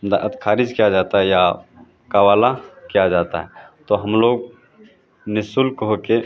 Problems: constant background noise